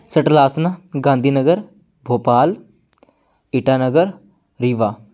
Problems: background sounds at intervals